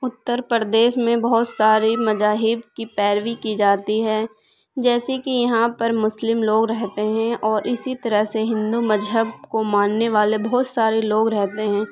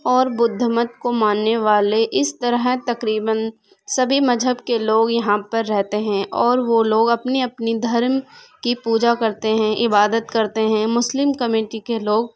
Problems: background sounds at intervals